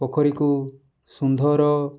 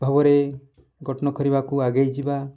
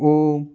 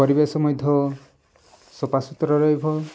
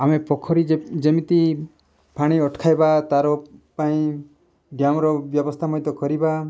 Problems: background sounds at intervals